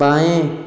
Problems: low volume